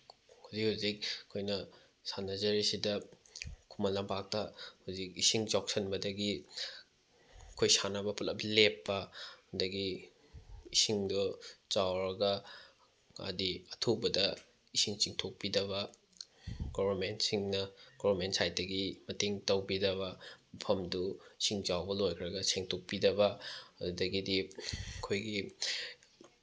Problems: none marked